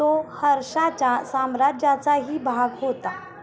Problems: none marked